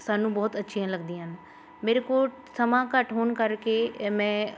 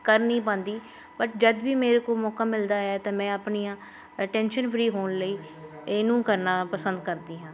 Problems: constant background noise, background conversations at intervals